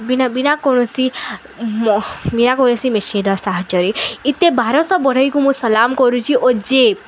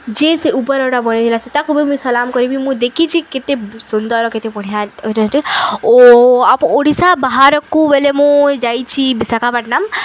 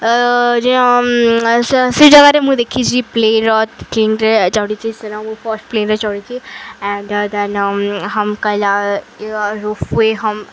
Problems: none marked